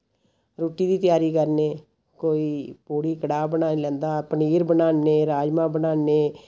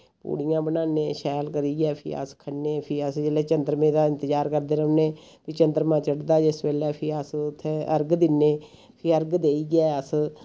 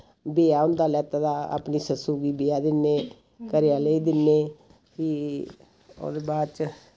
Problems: constant background noise